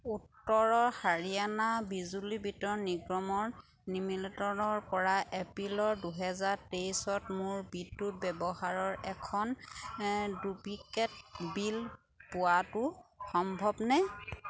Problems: none marked